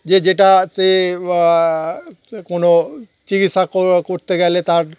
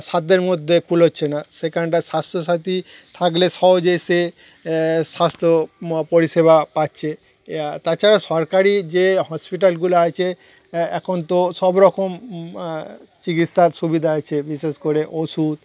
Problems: none marked